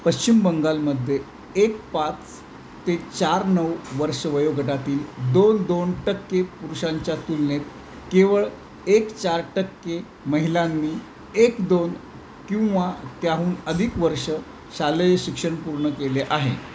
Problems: constant background noise